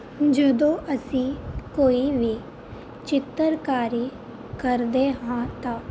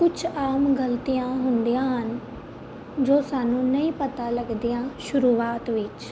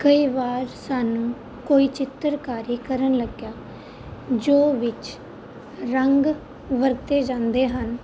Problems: constant background noise